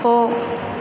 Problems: constant background noise